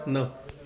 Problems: background sounds at intervals